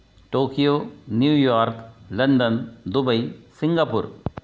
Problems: background sounds at intervals